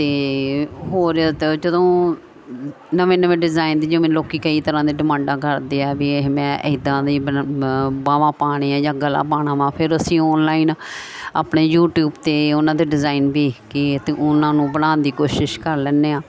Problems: none marked